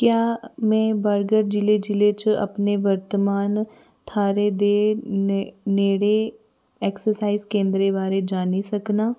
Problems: background sounds at intervals